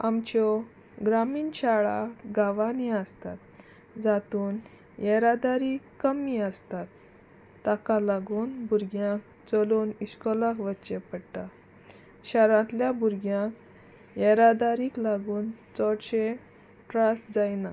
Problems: constant background noise